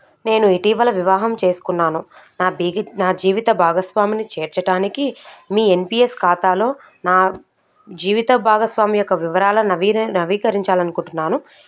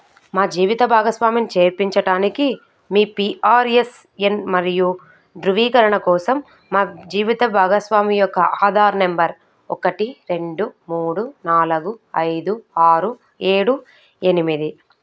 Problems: none marked